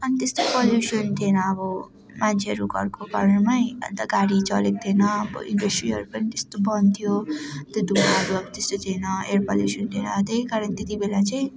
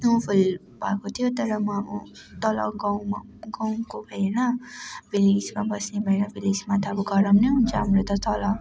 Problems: none marked